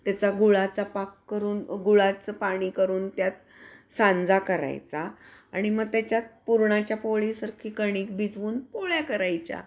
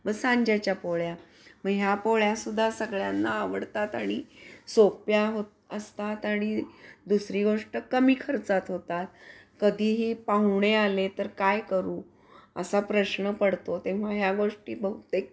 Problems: none marked